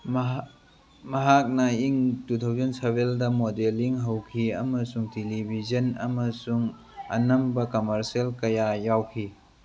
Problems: background sounds at intervals